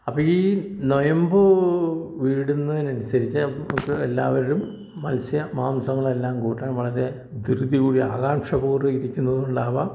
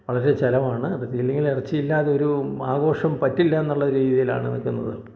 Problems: none marked